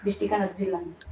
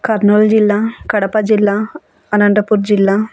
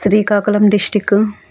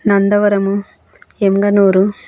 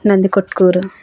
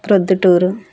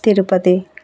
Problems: background conversations at intervals